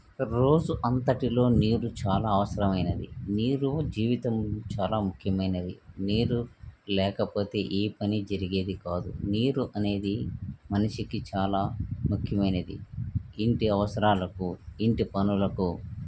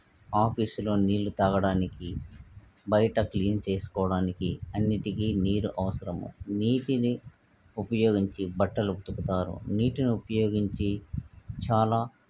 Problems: none marked